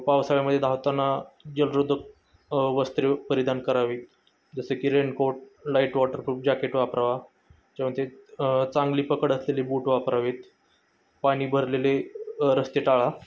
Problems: none marked